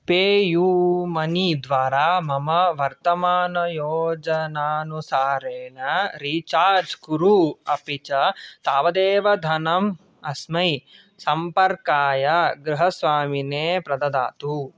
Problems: none marked